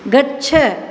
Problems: constant background noise